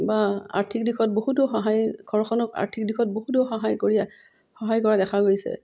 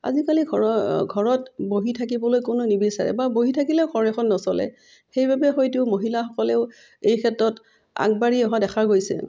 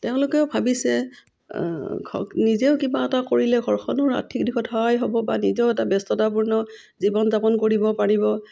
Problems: none marked